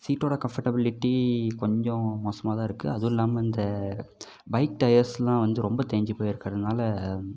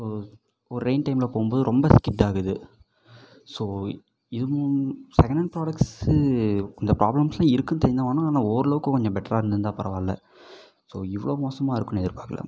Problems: background sounds at intervals